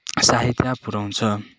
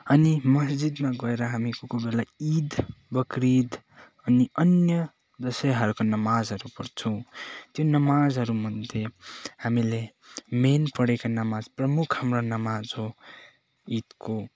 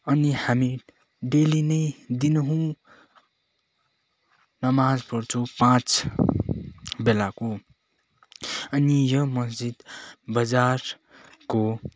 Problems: none marked